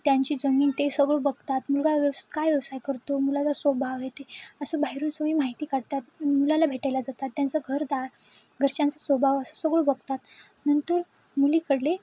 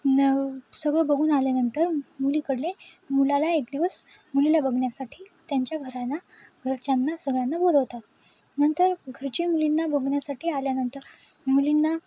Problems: constant background noise, background conversations at intervals